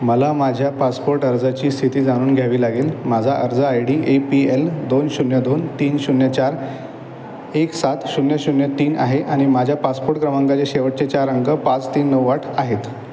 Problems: constant background noise, echo